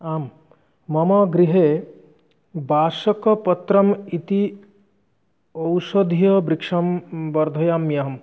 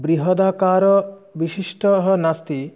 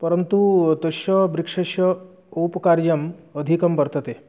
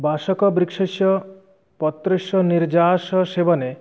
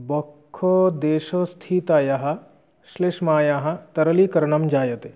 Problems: none marked